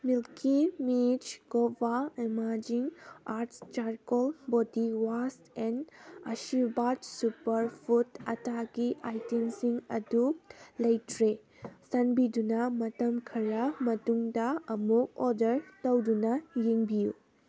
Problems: background sounds at intervals